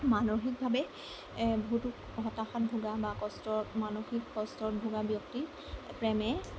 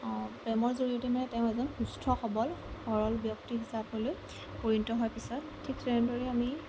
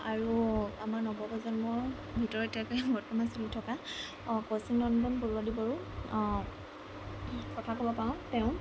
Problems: constant background noise